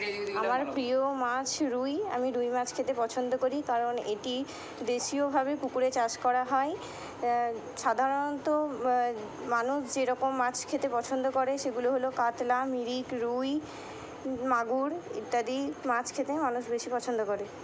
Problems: constant background noise